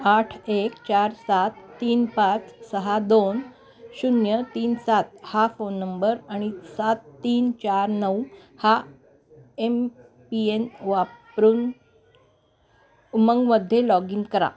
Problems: constant background noise, continuous background conversations